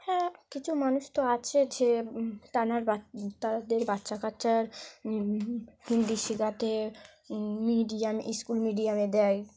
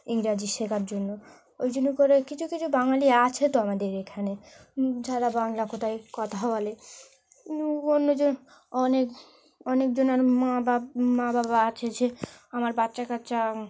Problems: none marked